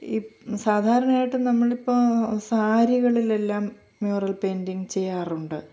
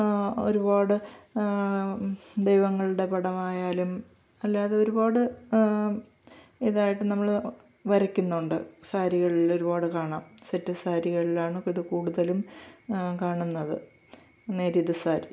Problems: none marked